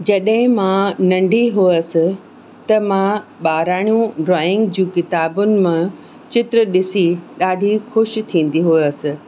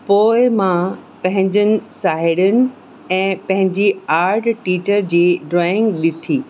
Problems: constant background noise